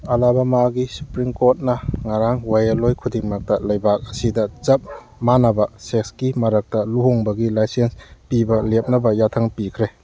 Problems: background sounds at intervals